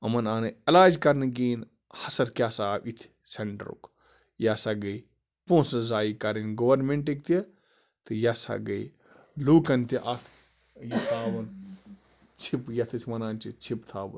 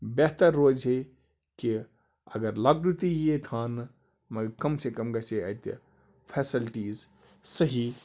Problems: constant background noise